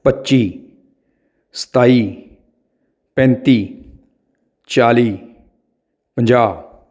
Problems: none marked